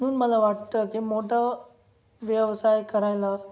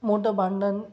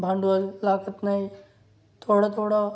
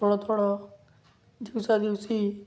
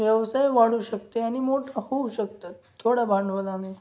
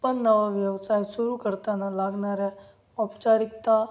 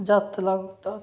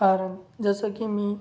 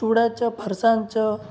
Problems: none marked